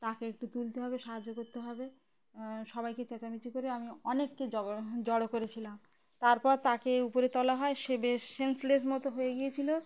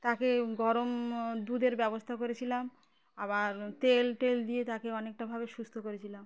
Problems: constant background noise